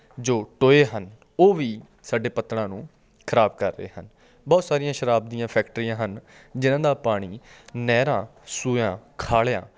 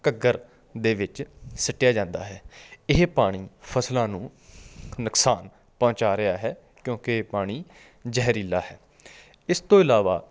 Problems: background sounds at intervals